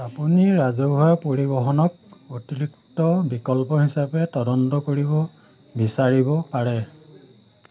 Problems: none marked